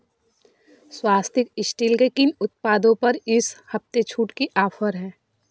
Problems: constant background noise